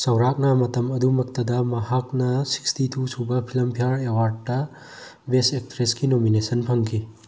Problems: none marked